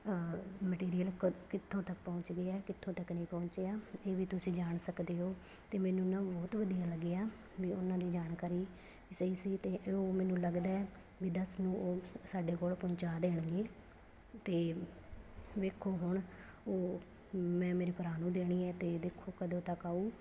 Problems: none marked